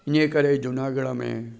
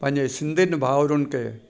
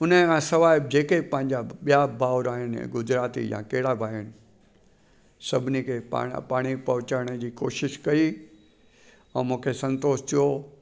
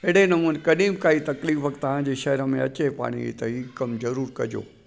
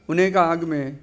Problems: constant background noise